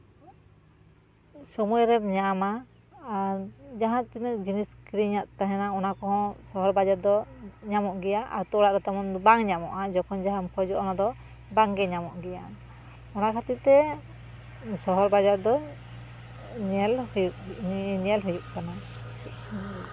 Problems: background sounds at intervals